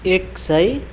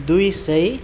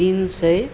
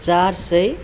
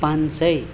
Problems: none marked